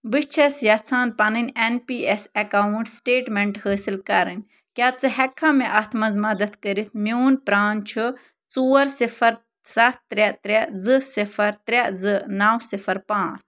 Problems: none marked